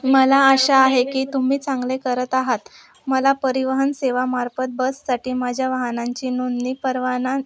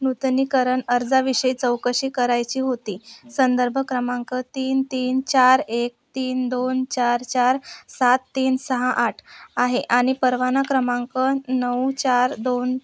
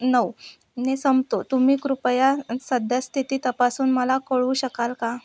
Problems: background sounds at intervals